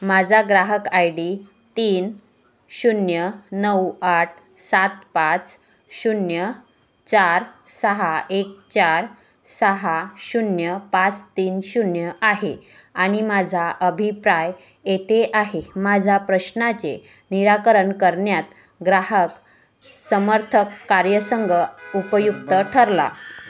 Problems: background sounds at intervals